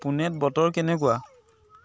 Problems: none marked